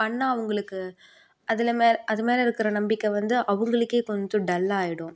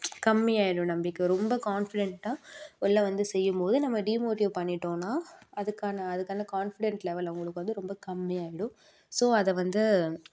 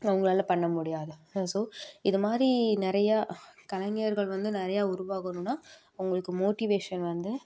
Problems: none marked